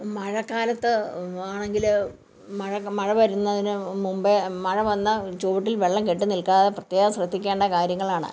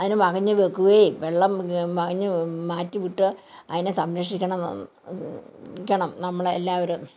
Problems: background conversations at intervals